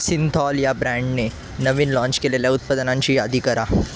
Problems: constant background noise